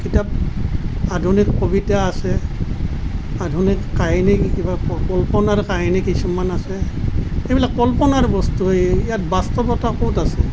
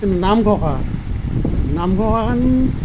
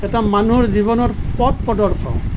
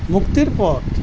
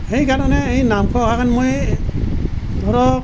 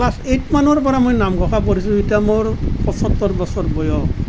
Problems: constant background noise